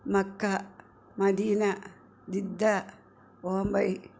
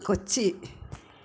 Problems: background conversations at intervals